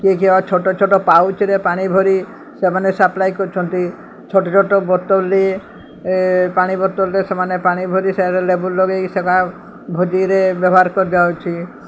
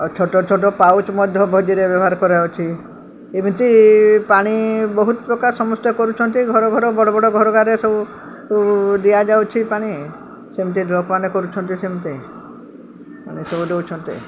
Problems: constant background noise